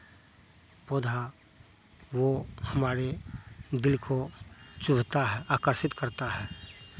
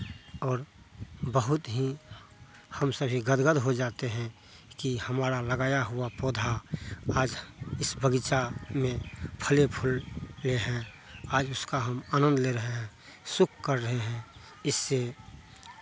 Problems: constant background noise